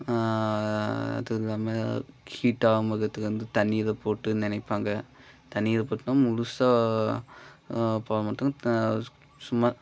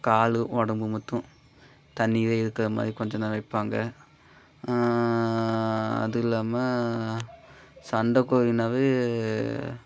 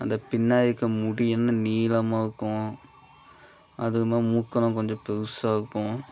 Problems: background sounds at intervals